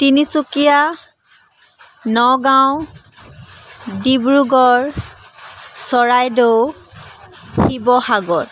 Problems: constant background noise